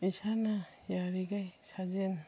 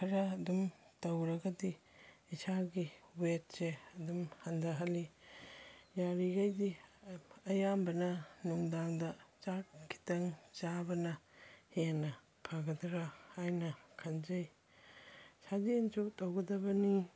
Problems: none marked